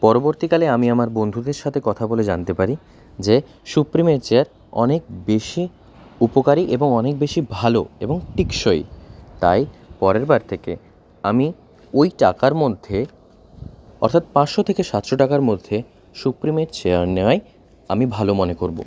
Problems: none marked